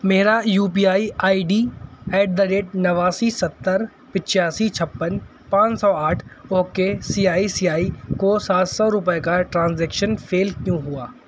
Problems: none marked